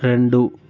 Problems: none marked